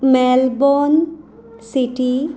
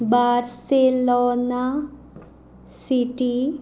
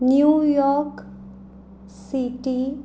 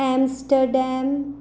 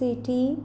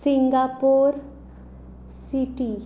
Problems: none marked